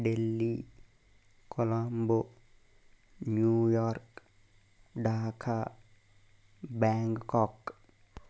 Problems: constant background noise, low volume